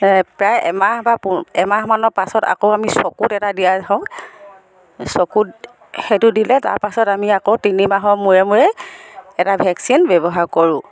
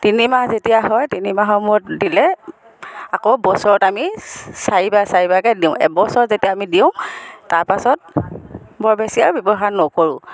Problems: background sounds at intervals, background conversations at intervals